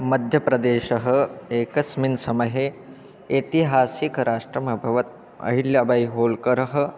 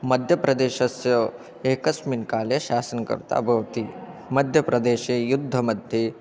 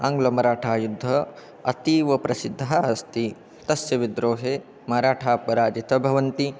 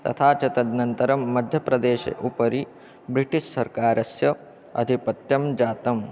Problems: continuous background conversations